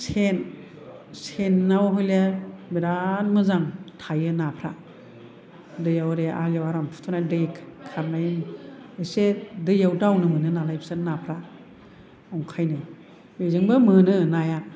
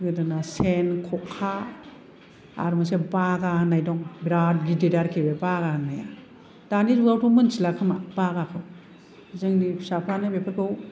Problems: none marked